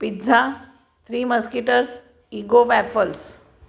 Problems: none marked